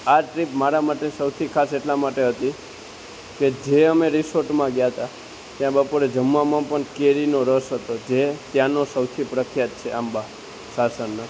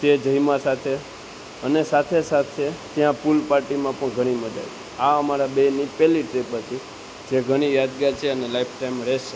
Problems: constant background noise